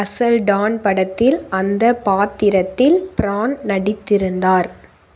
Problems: constant background noise